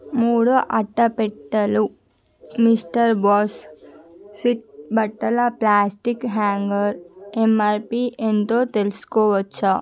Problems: none marked